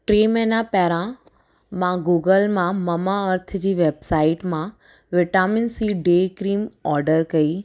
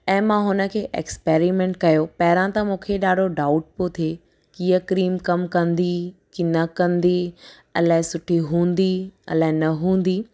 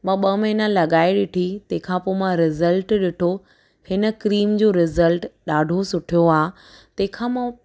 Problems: none marked